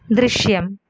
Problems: background sounds at intervals